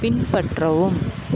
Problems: background sounds at intervals